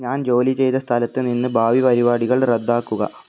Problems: none marked